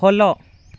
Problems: none marked